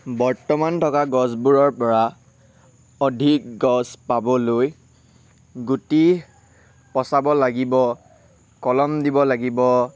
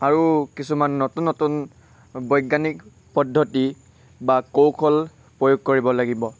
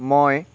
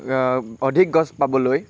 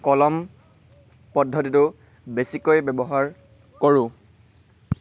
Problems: none marked